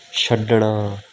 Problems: background sounds at intervals